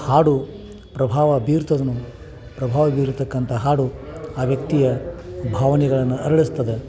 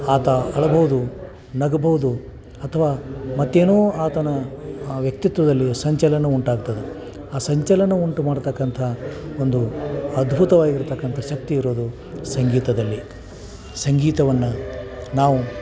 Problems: background sounds at intervals